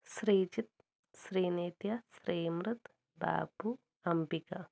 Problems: low volume